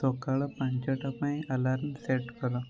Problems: background conversations at intervals